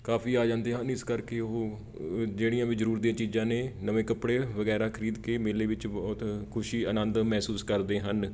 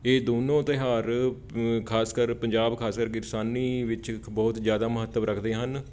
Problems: background sounds at intervals